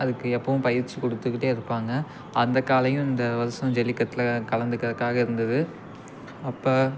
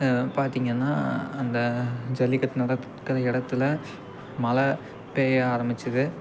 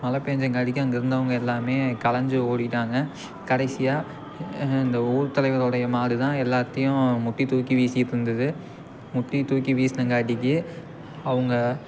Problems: constant background noise